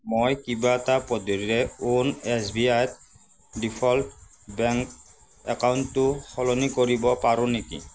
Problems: constant background noise